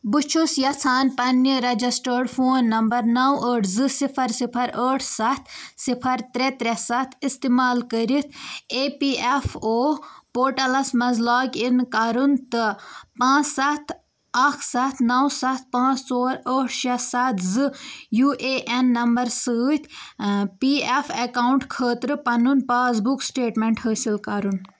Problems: constant background noise